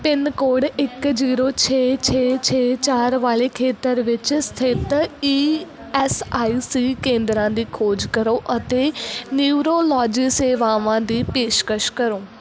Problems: background sounds at intervals